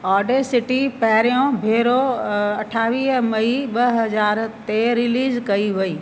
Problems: constant background noise, echo